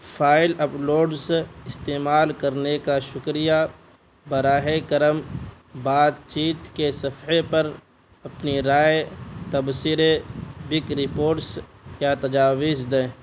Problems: constant background noise